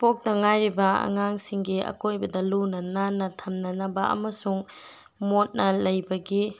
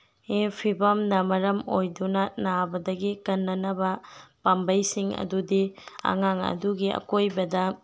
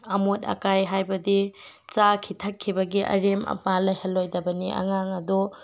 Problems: background sounds at intervals